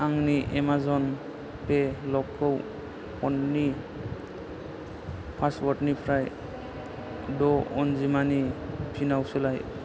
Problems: low volume